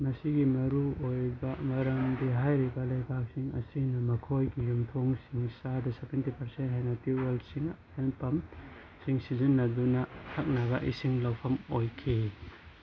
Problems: constant background noise